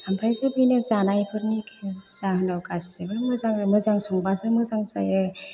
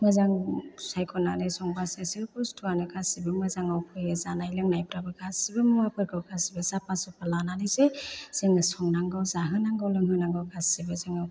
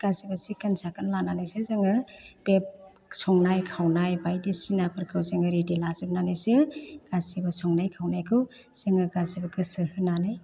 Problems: low volume